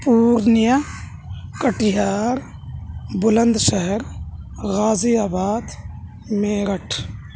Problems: none marked